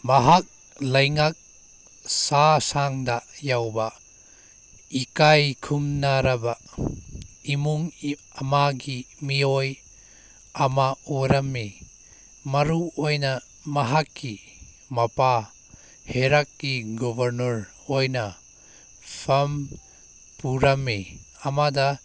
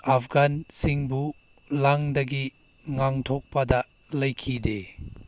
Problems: background sounds at intervals